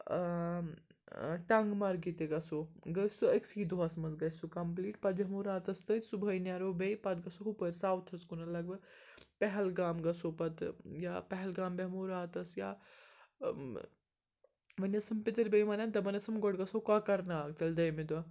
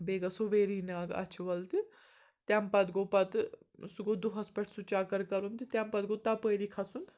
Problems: constant background noise